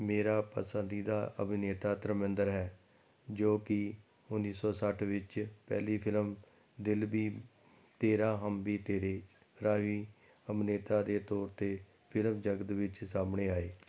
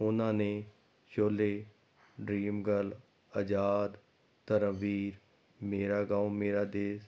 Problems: none marked